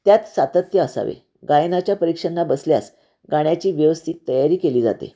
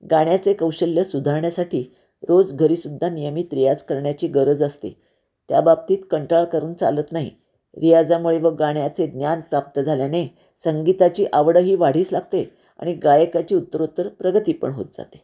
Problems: none marked